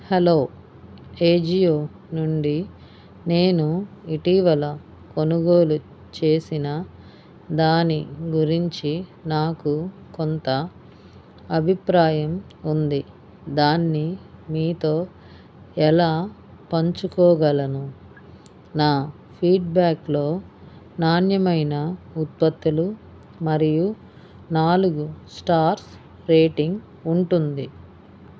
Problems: none marked